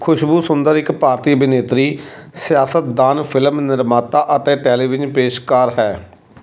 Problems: constant background noise